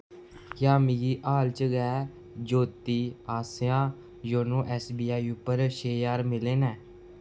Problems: constant background noise